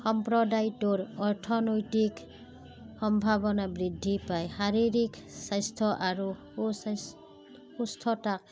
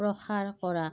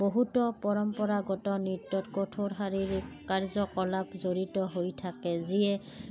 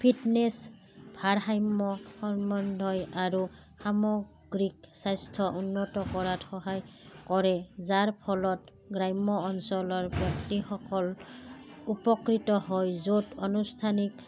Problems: background sounds at intervals, background conversations at intervals